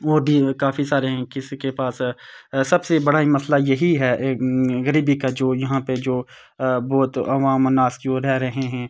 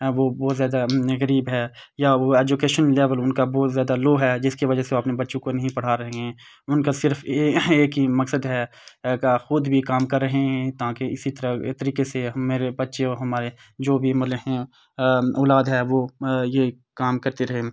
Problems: constant background noise